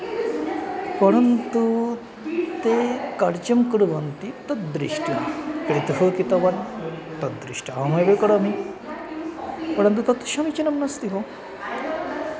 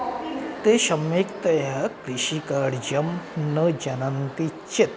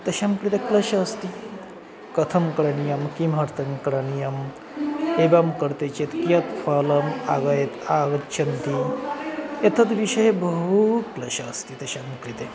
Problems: constant background noise